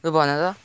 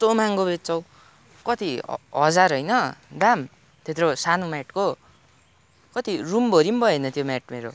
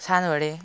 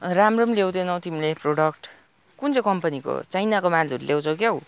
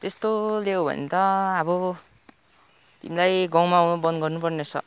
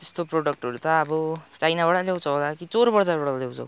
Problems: none marked